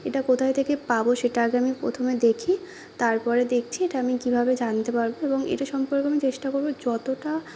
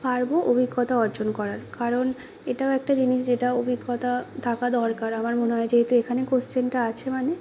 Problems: none marked